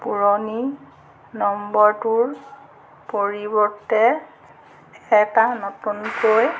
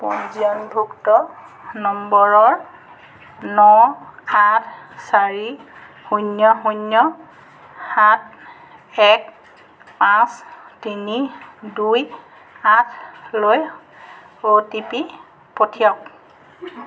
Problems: none marked